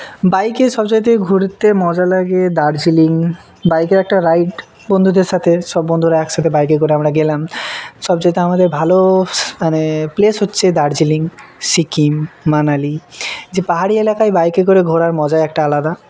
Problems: background conversations at intervals